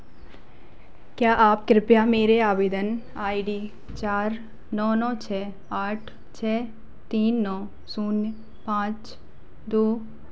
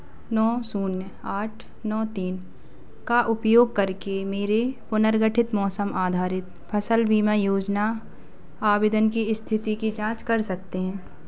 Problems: constant background noise